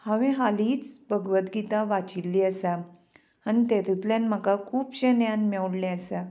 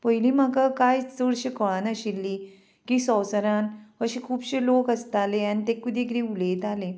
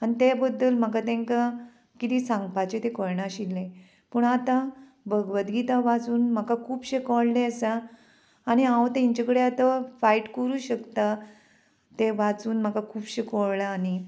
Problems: constant background noise